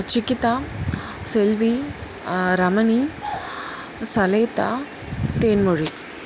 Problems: constant background noise